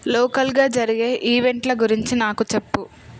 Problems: background sounds at intervals